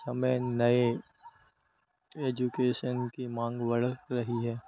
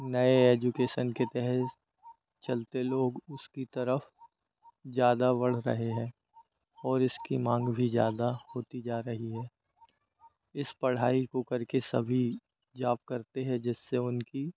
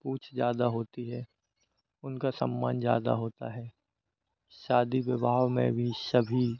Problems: none marked